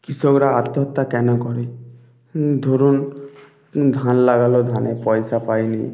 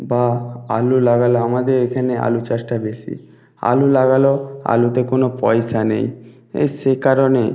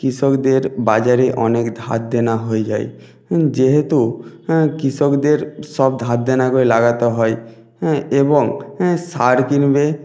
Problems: background sounds at intervals